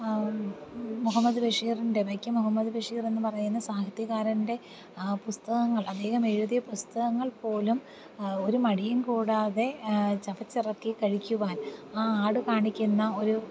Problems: constant background noise, low volume